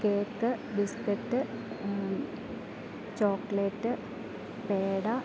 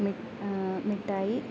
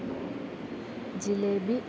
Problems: constant background noise